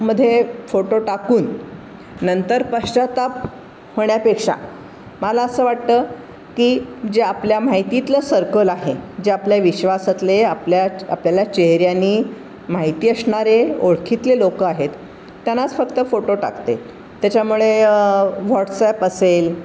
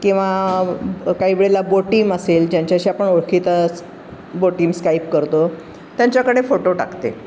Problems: constant background noise